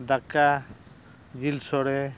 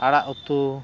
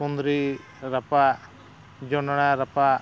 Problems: background sounds at intervals